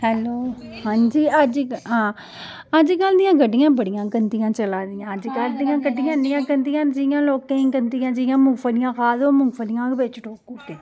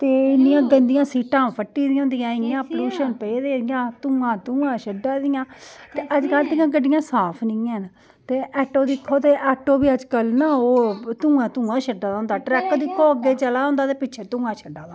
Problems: background sounds at intervals